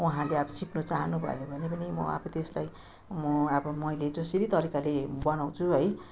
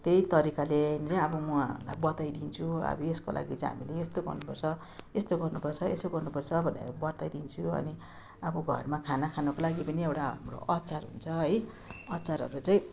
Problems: constant background noise